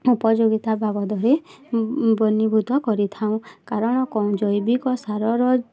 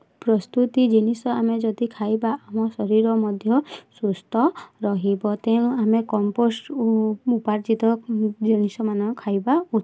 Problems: constant background noise, continuous background conversations